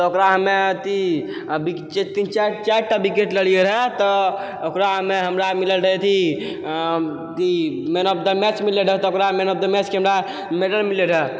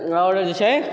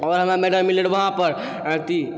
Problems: none marked